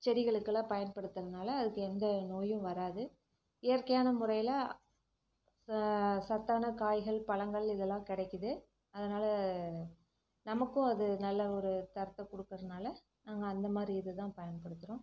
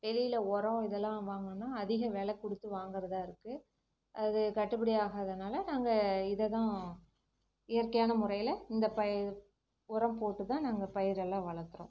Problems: low volume